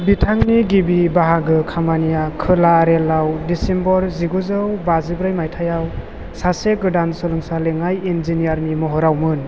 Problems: constant background noise